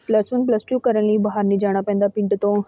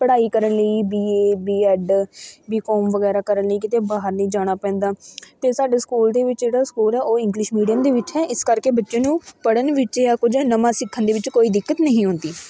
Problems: continuous background conversations